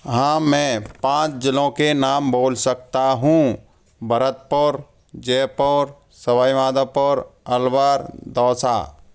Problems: background sounds at intervals